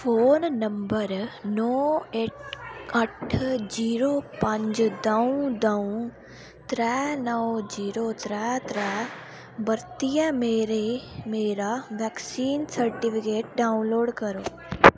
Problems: none marked